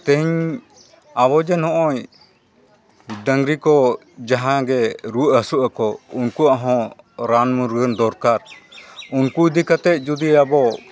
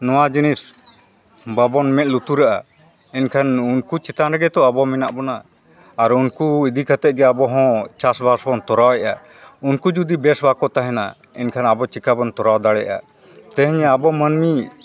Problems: continuous background conversations